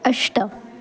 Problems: constant background noise